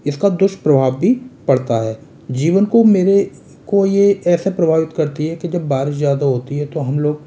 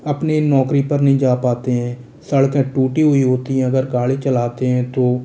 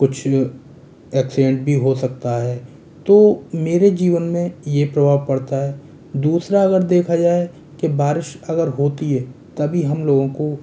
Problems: constant background noise